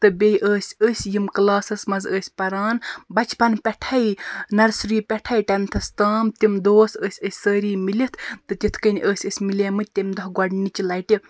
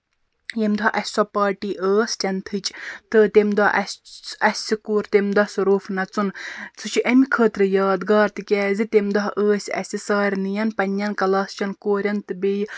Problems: background sounds at intervals